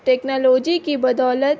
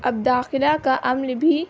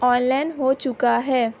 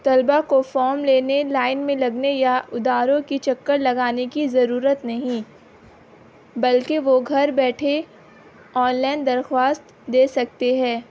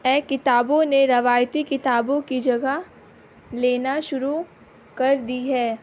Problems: constant background noise